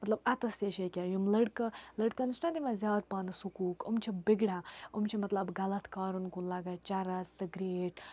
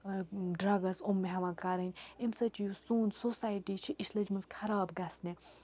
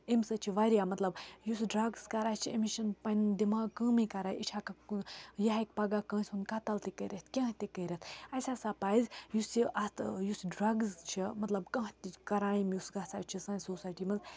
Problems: background sounds at intervals